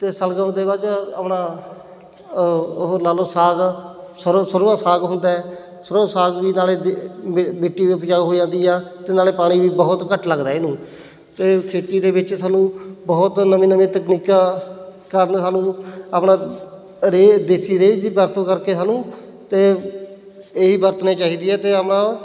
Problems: none marked